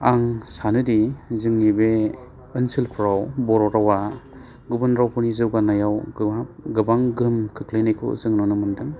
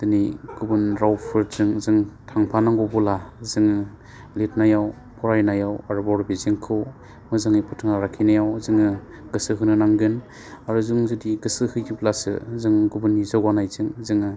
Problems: constant background noise